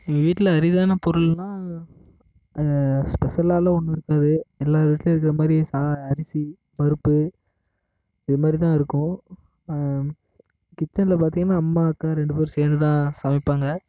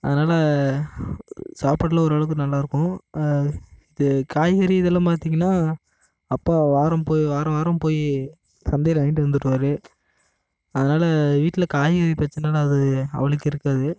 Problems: constant background noise